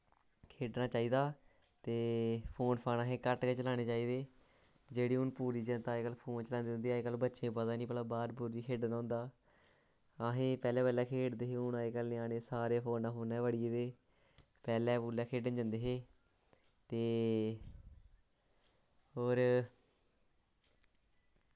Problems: low volume